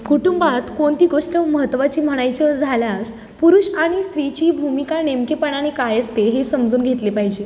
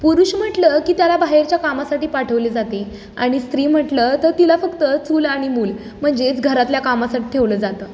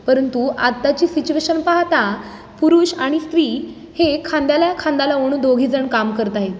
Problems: background sounds at intervals